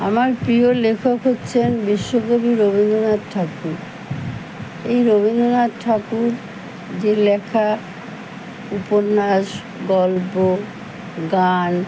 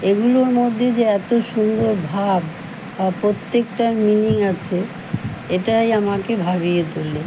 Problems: none marked